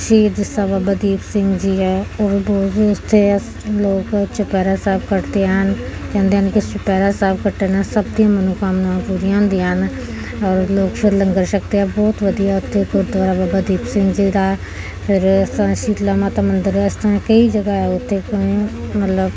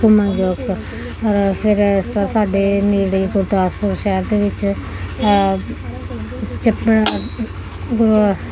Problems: none marked